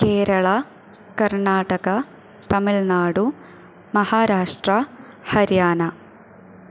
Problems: none marked